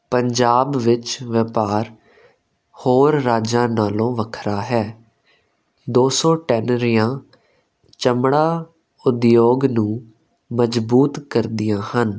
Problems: constant background noise